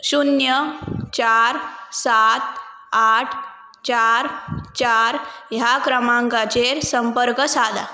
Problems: none marked